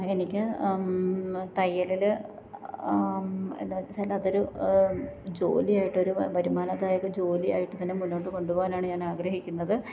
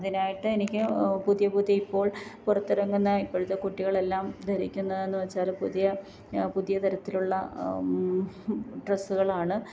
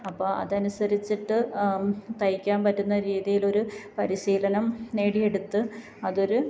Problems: background sounds at intervals, low volume